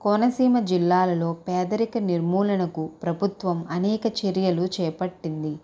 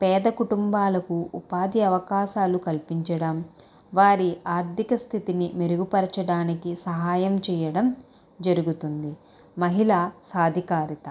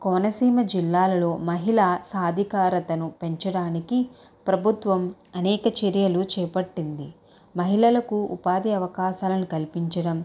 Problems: none marked